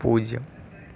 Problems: low volume